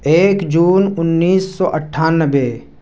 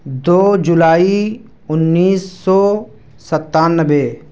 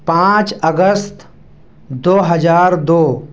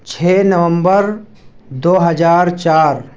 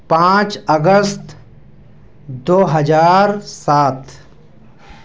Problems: background sounds at intervals